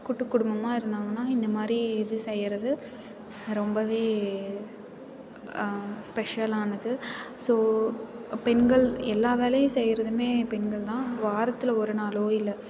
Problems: constant background noise, continuous background conversations